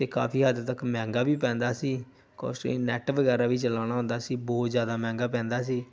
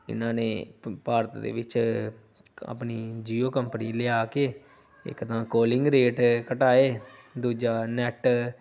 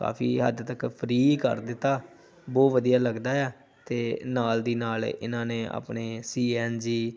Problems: background conversations at intervals